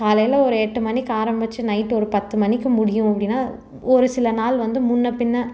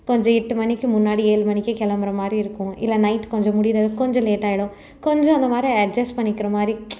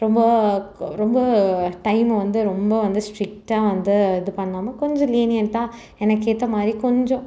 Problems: none marked